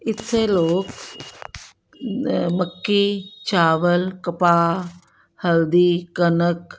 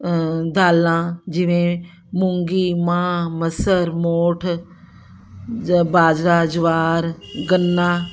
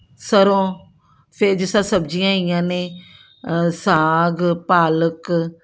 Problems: background sounds at intervals